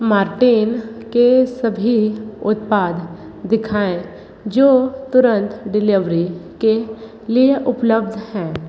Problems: echo